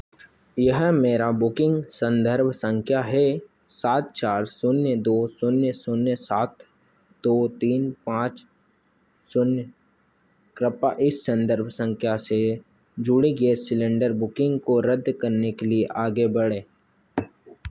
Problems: constant background noise